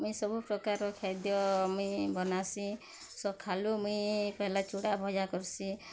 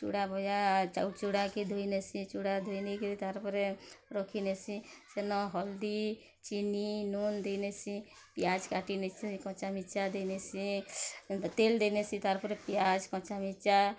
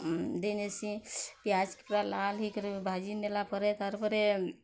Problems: low volume